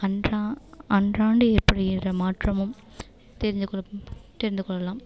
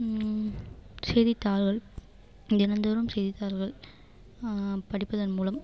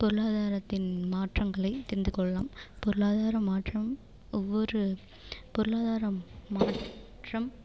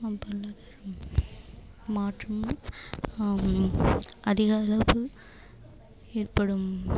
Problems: constant background noise